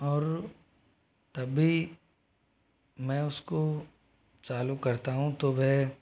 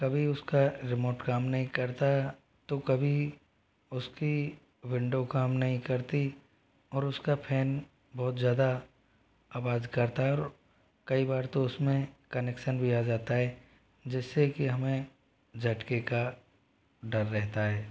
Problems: background sounds at intervals